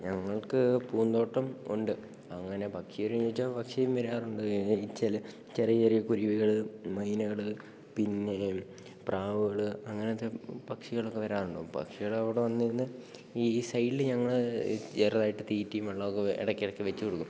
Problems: none marked